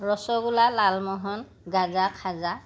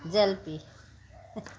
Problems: constant background noise